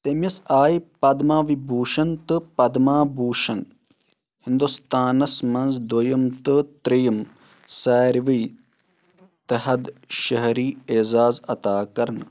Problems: constant background noise